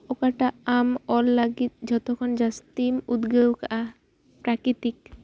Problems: background sounds at intervals